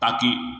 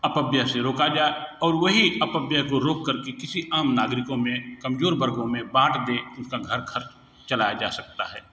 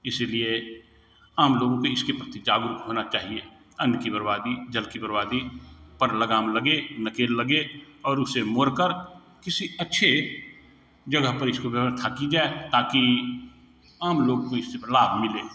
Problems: background sounds at intervals